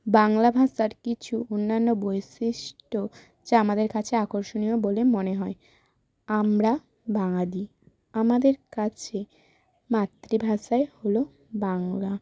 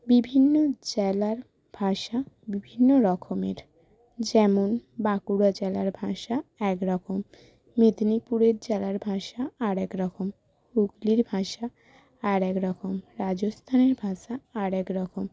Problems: constant background noise